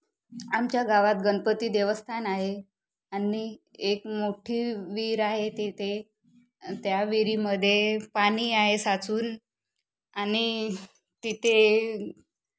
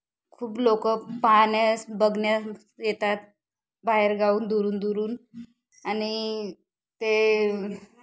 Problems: constant background noise